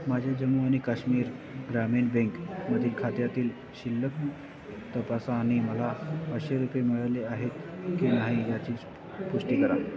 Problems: constant background noise, background conversations at intervals